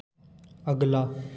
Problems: constant background noise, echo